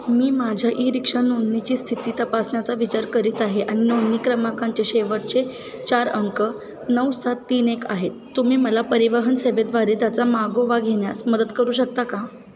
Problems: constant background noise, continuous background conversations